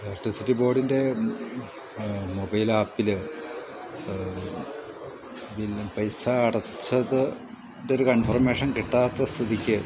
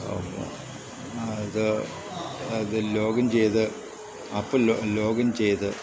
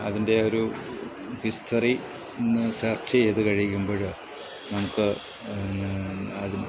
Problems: constant background noise